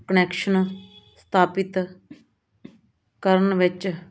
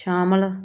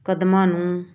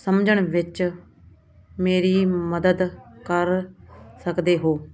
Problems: none marked